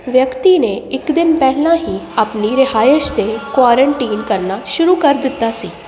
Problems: none marked